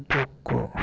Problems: constant background noise